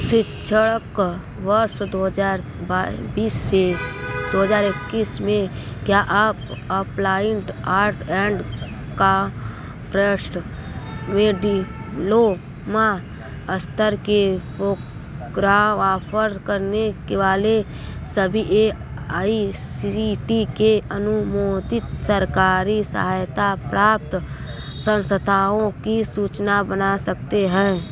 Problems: constant background noise